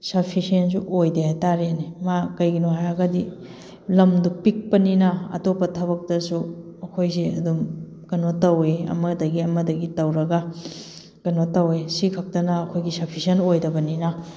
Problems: background sounds at intervals